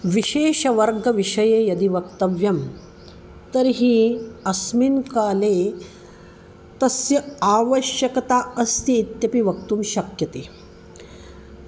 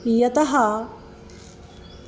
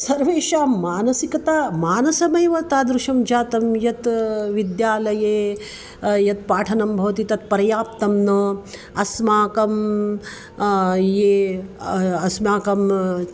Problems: constant background noise